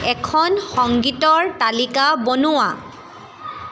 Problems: constant background noise, background conversations at intervals